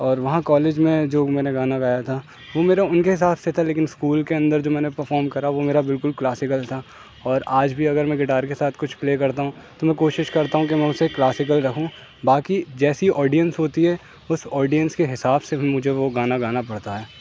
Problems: constant background noise